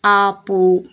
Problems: none marked